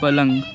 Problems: constant background noise, continuous background conversations